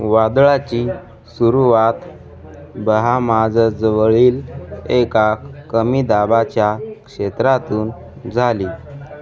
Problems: constant background noise, continuous background conversations